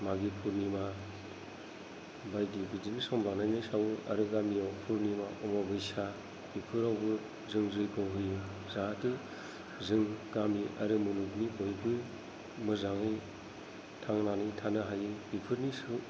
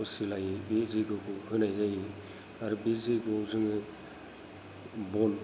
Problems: low volume